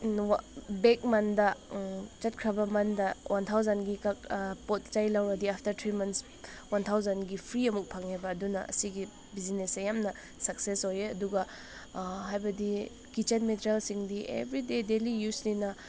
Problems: none marked